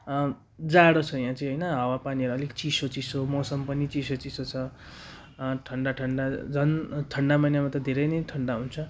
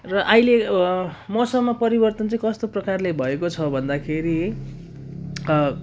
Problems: none marked